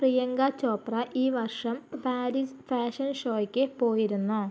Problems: low volume